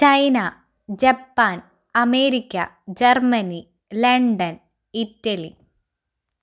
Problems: none marked